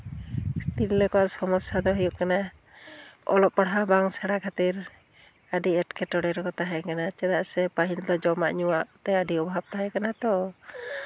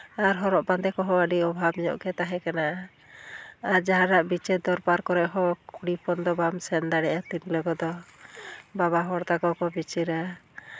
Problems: none marked